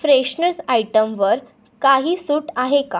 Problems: background sounds at intervals